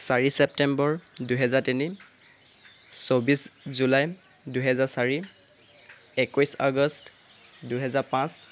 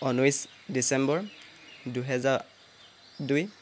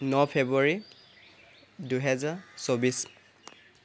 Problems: constant background noise